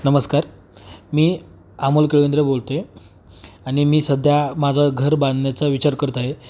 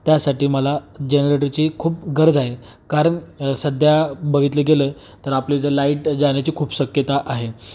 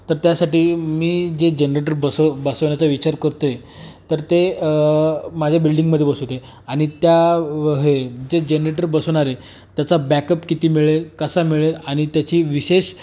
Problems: background sounds at intervals